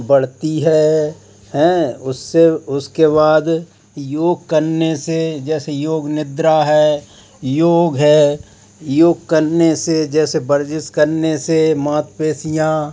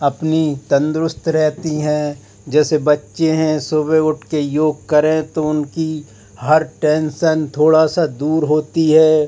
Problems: constant background noise